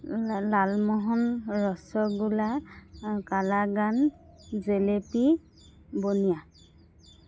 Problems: constant background noise